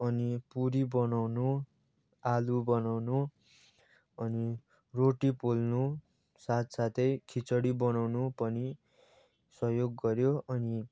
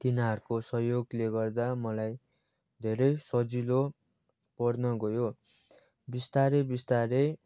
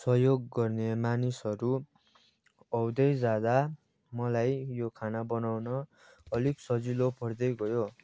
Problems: background sounds at intervals, background conversations at intervals